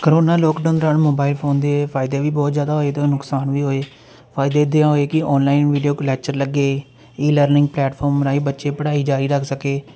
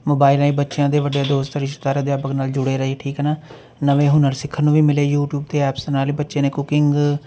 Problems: constant background noise